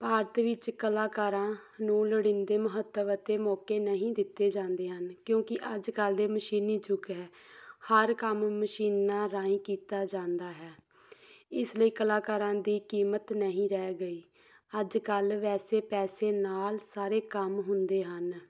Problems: background sounds at intervals